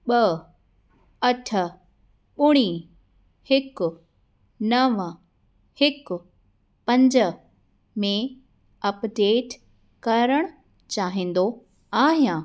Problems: constant background noise